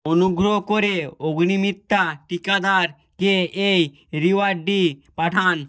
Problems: none marked